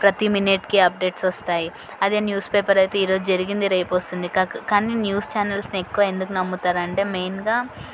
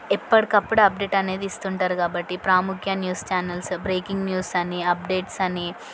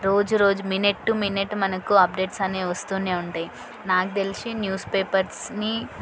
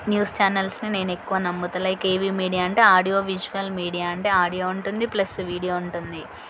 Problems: constant background noise, background conversations at intervals